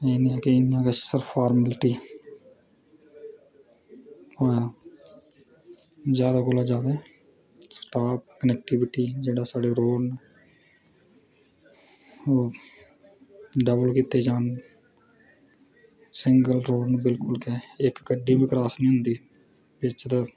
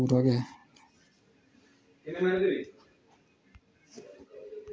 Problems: none marked